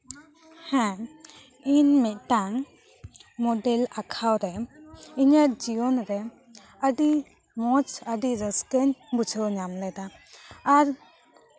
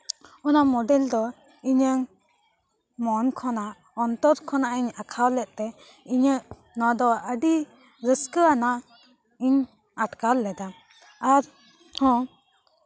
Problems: constant background noise, continuous background conversations